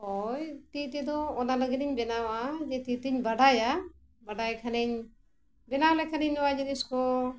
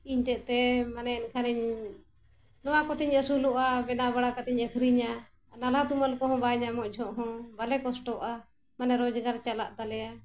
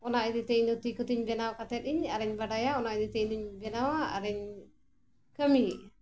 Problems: constant background noise